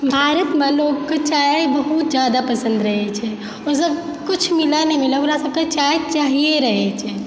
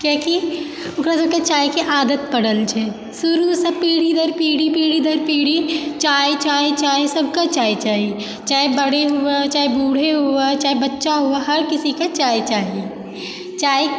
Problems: constant background noise